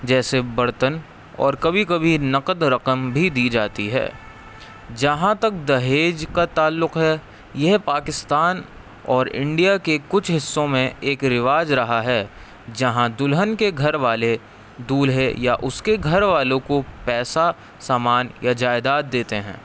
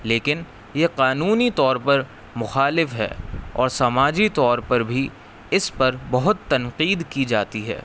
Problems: constant background noise